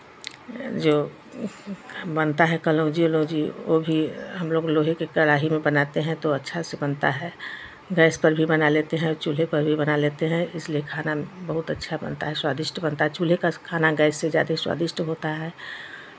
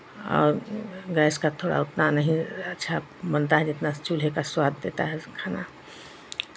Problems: none marked